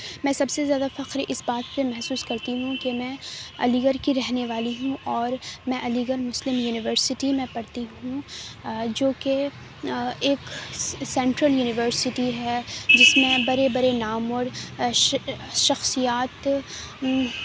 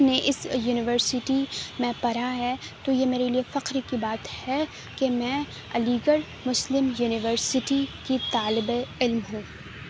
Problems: none marked